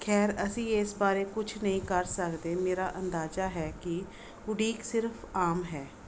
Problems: background sounds at intervals